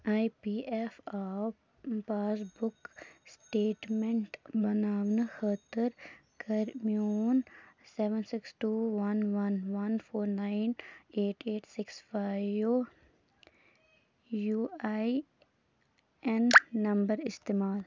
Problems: background sounds at intervals, background conversations at intervals